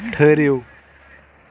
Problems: none marked